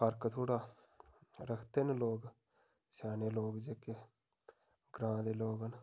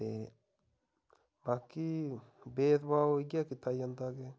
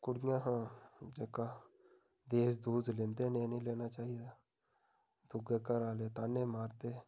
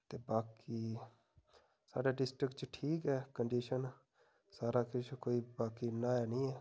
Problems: background sounds at intervals